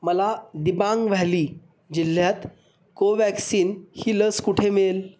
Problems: none marked